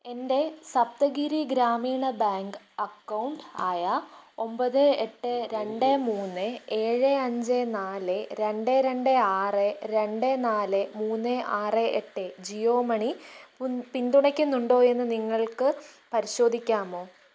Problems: none marked